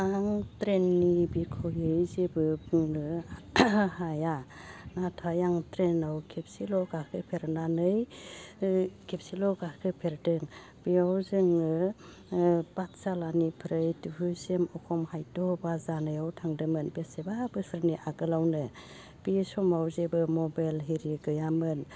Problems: constant background noise